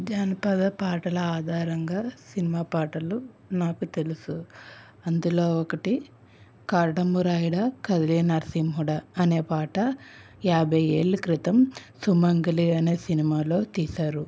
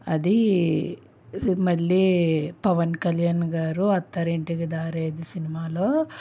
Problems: none marked